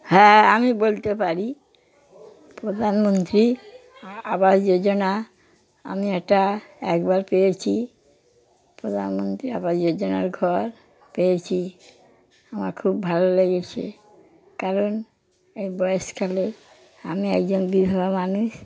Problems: background sounds at intervals, background conversations at intervals